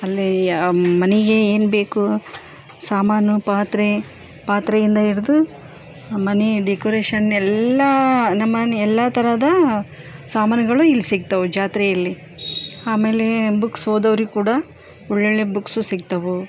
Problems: none marked